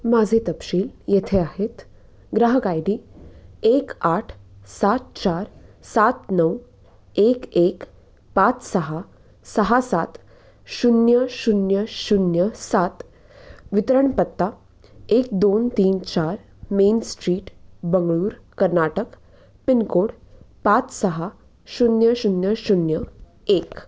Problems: none marked